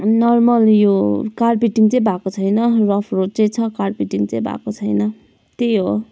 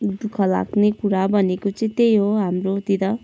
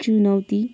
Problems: none marked